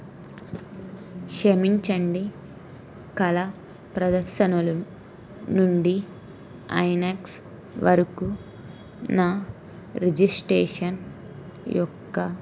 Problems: none marked